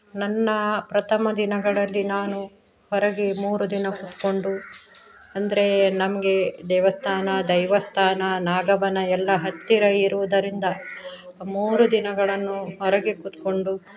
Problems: background sounds at intervals